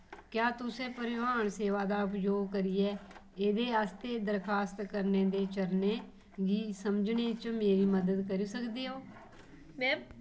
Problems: none marked